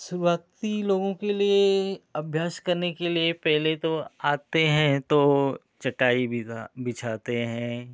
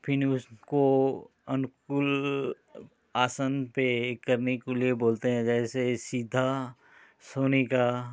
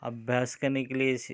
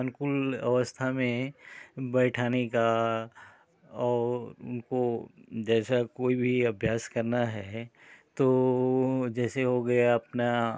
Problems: constant background noise